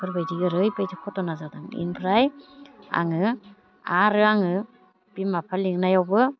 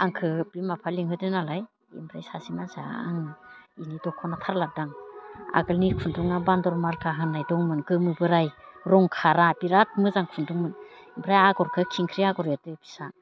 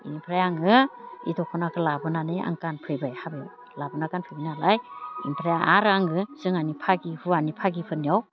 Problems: constant background noise